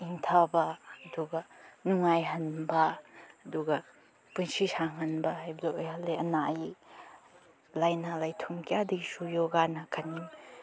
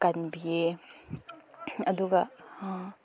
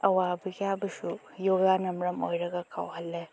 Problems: none marked